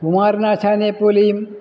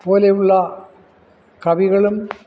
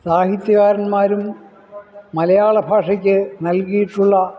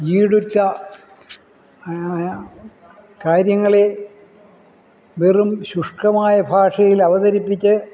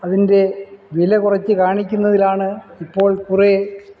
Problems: none marked